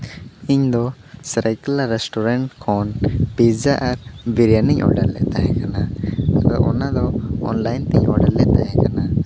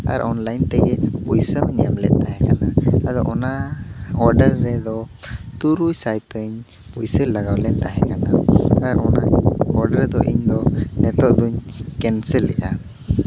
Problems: background sounds at intervals